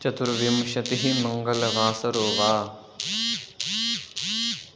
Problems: constant background noise